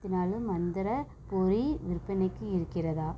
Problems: none marked